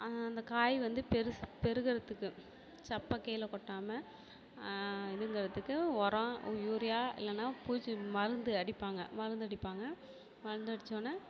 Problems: none marked